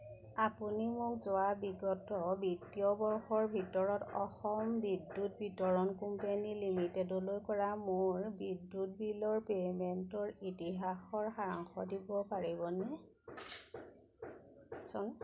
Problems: background conversations at intervals